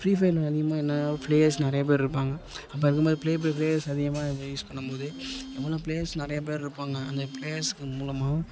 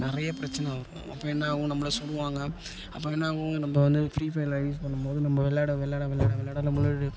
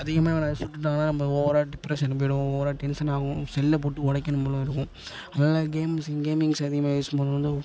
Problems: constant background noise, background conversations at intervals